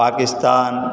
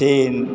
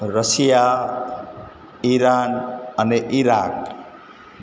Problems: none marked